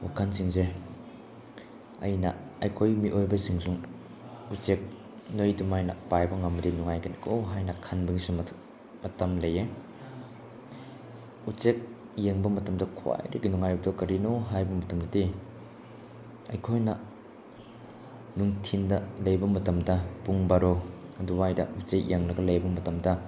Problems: none marked